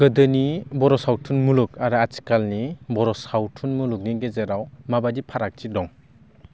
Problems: none marked